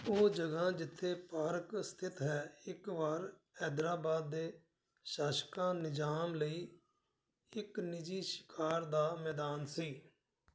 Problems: background sounds at intervals